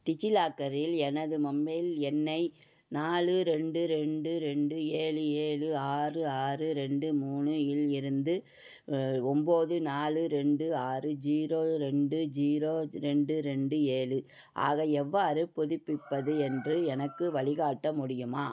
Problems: background sounds at intervals